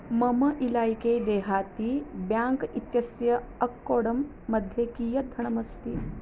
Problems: constant background noise